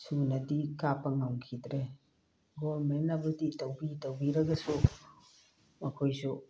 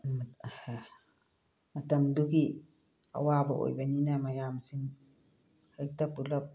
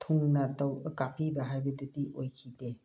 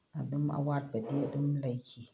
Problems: background sounds at intervals, low volume